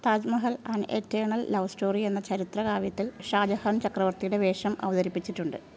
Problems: background sounds at intervals